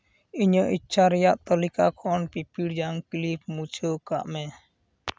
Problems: none marked